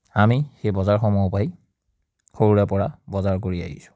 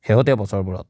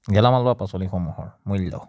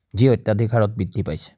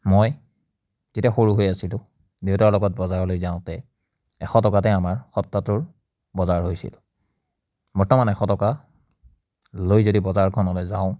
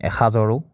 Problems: none marked